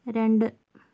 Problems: low volume